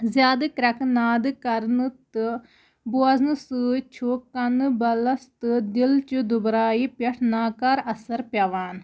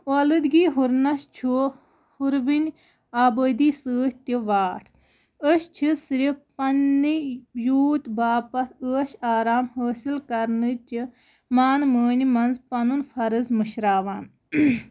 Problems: background sounds at intervals